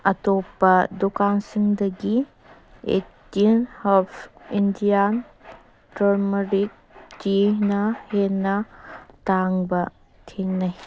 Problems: background sounds at intervals